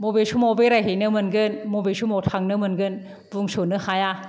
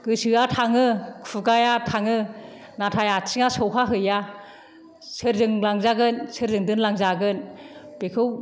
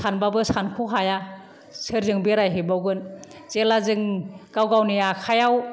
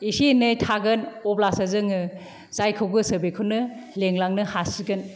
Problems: none marked